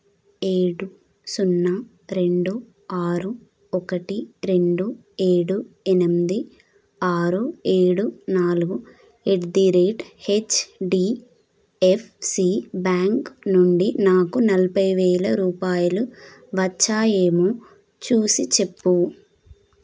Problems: none marked